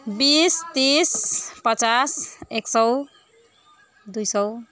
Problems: background conversations at intervals